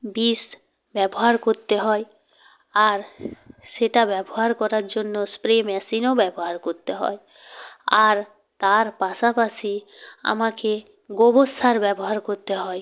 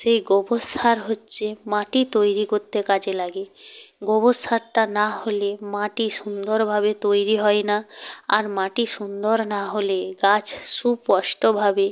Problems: none marked